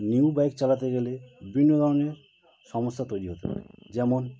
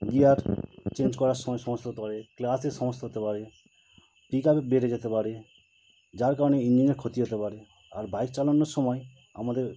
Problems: constant background noise